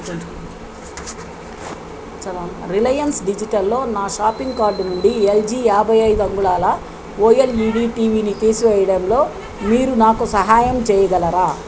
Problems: constant background noise, background conversations at intervals